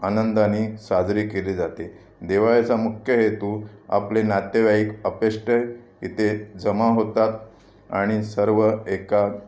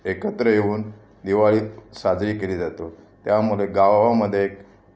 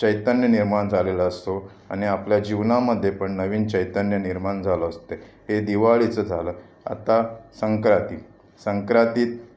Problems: constant background noise